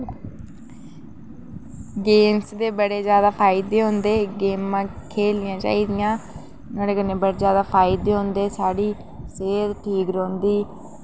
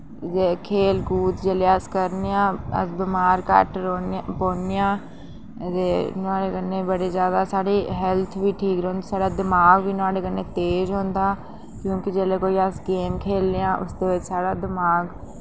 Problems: background conversations at intervals